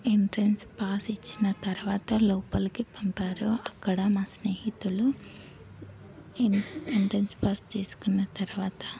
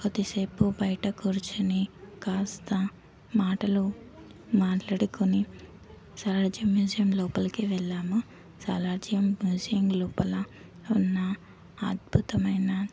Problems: constant background noise, background conversations at intervals